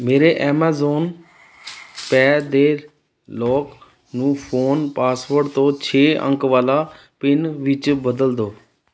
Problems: background sounds at intervals